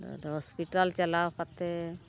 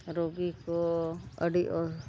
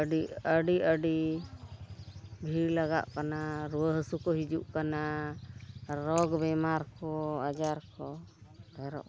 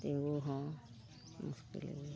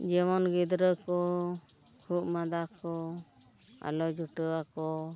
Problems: background sounds at intervals, low volume